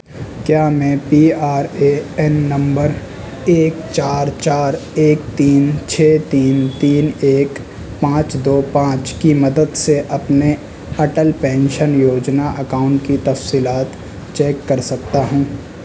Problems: constant background noise, background conversations at intervals